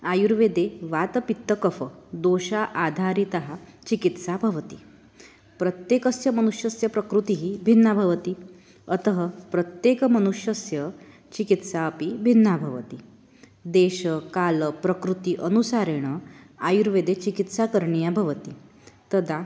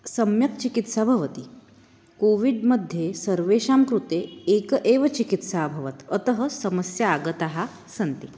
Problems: none marked